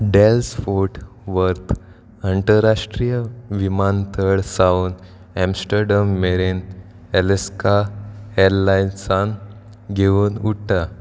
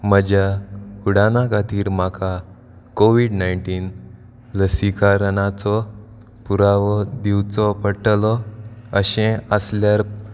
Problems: background sounds at intervals